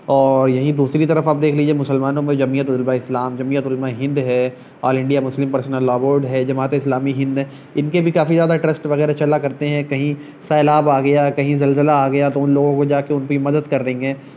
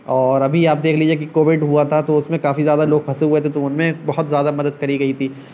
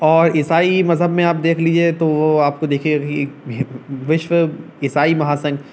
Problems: none marked